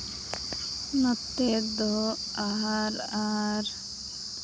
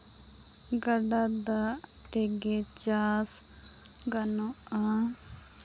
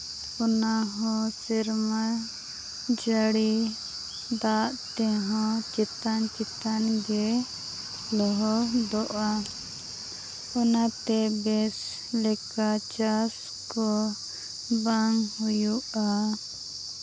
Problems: background sounds at intervals